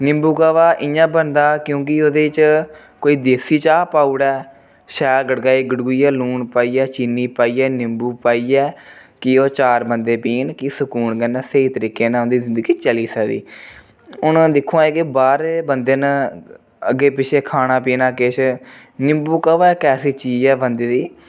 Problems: none marked